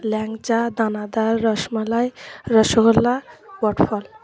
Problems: continuous background conversations